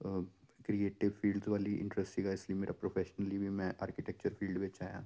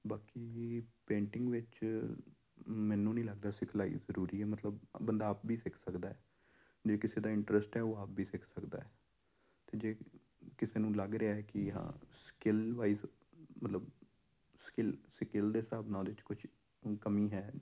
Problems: none marked